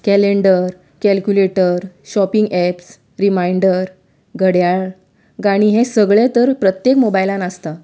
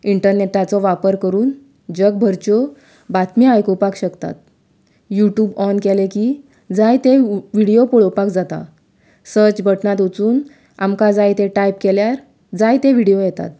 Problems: background sounds at intervals